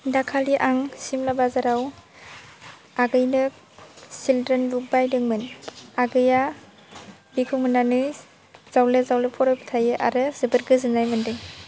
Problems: none marked